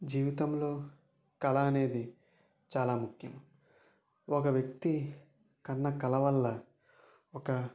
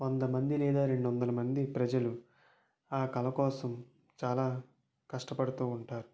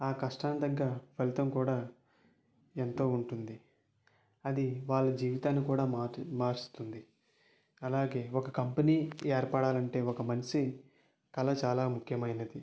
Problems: low volume